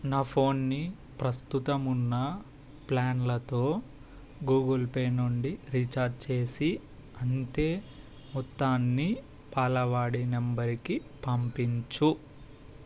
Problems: constant background noise